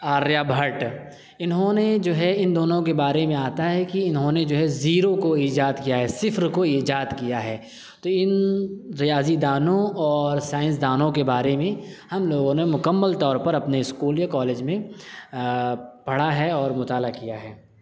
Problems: none marked